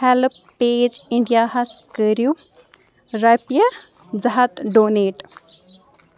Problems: background sounds at intervals